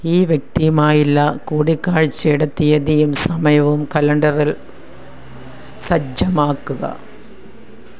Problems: background sounds at intervals